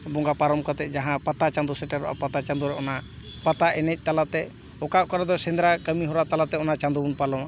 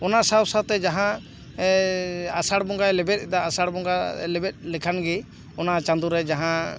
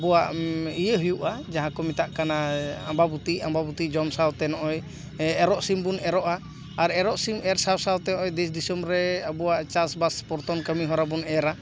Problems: none marked